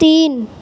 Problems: constant background noise